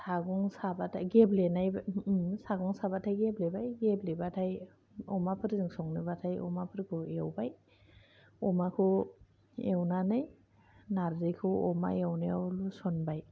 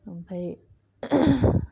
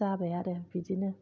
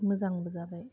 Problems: low volume